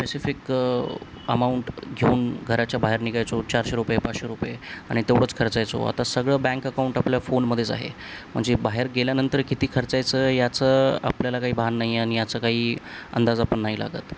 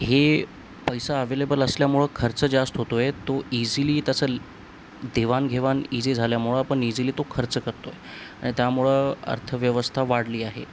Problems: constant background noise